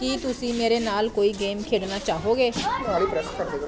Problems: constant background noise